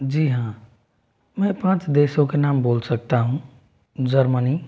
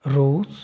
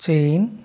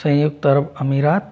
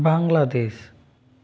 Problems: background sounds at intervals